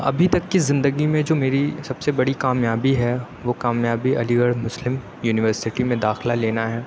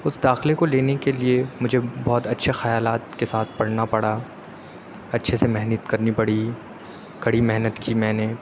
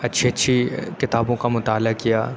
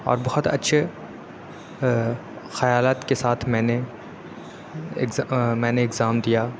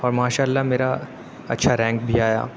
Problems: none marked